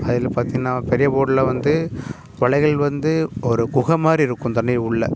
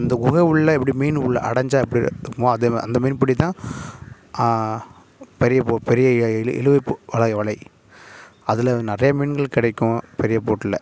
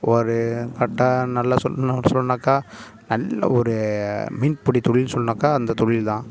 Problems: none marked